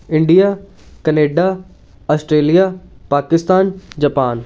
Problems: none marked